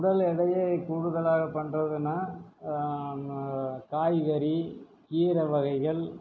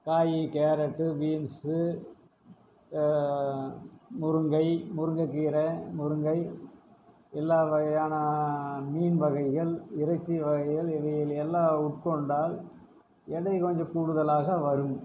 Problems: low volume